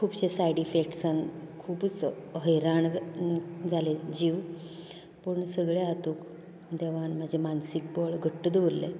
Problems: constant background noise